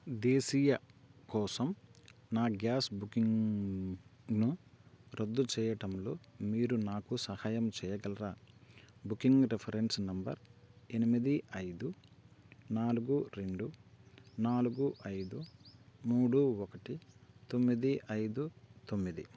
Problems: constant background noise